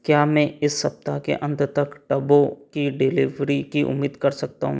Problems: background sounds at intervals